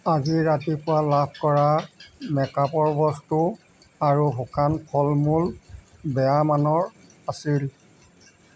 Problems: background sounds at intervals